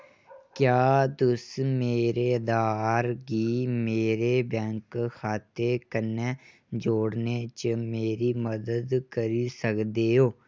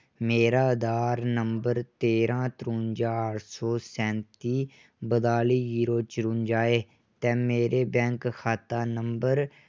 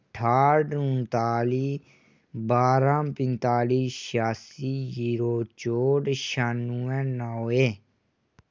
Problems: none marked